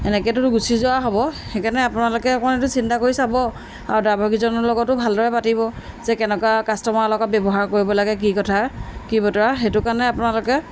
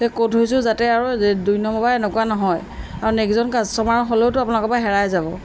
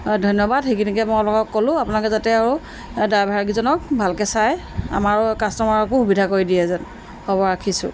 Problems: background sounds at intervals